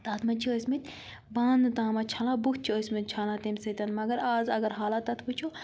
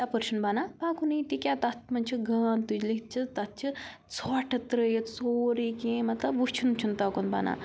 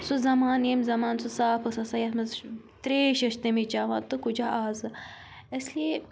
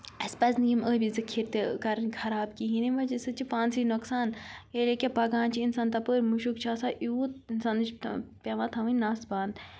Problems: none marked